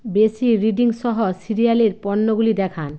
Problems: constant background noise